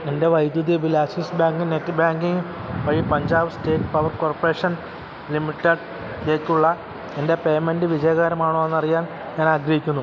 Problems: constant background noise